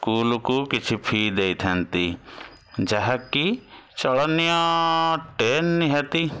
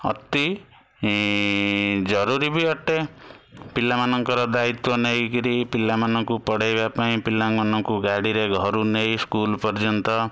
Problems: constant background noise